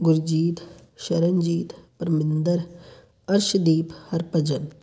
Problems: none marked